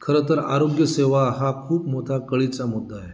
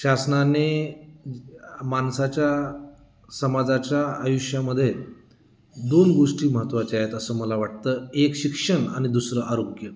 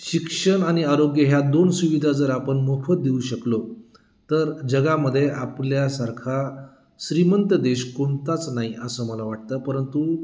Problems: none marked